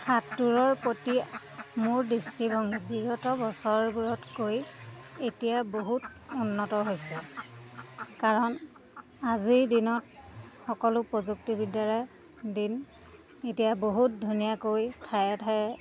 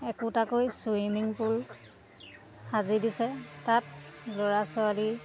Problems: constant background noise